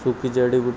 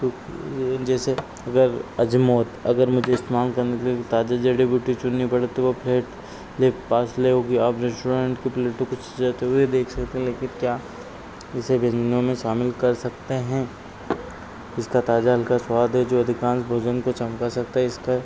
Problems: none marked